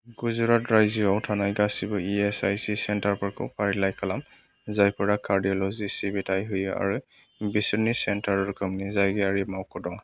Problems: background sounds at intervals